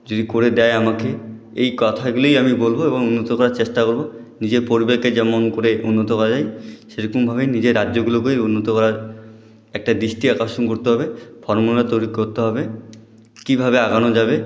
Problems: none marked